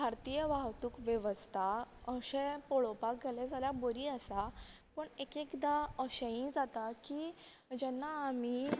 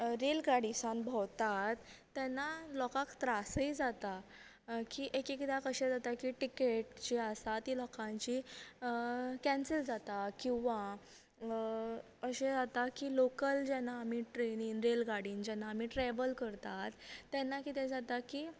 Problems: none marked